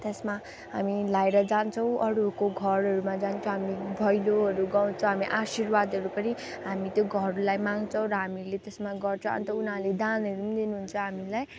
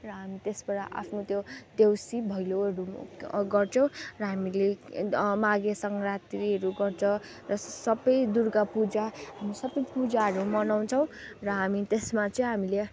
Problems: constant background noise